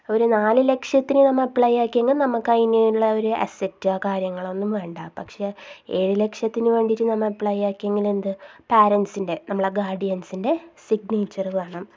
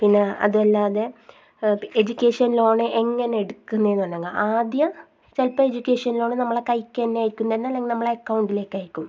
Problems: low volume